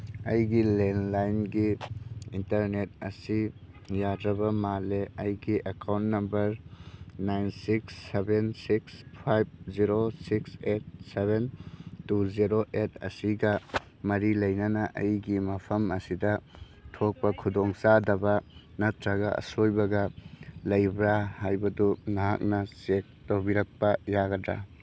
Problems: none marked